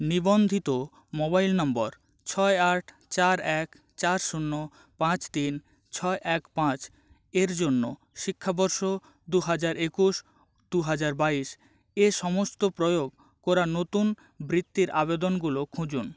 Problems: background sounds at intervals